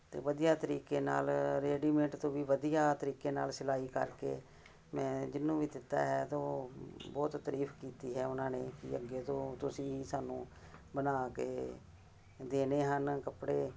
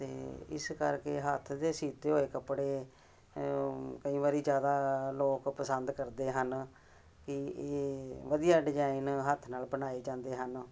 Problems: none marked